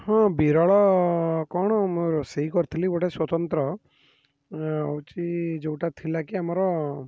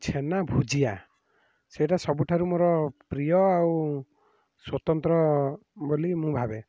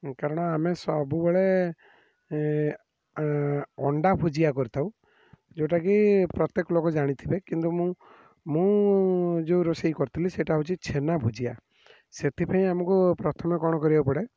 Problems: none marked